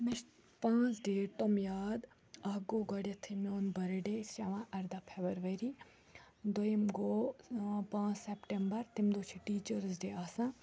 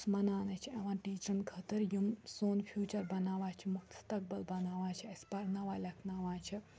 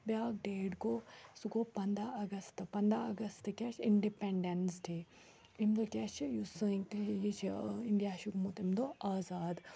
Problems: background sounds at intervals, background conversations at intervals